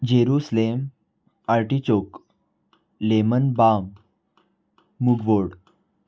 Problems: none marked